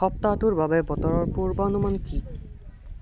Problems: continuous background conversations